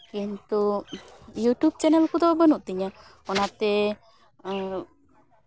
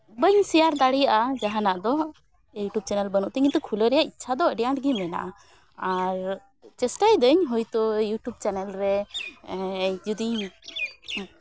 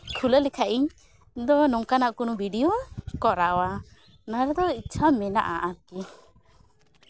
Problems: none marked